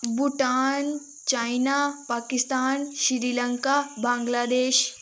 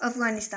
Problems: none marked